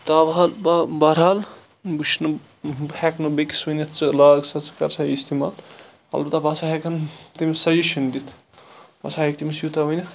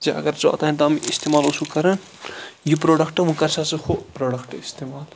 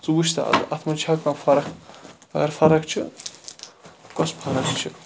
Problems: constant background noise